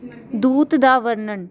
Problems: background conversations at intervals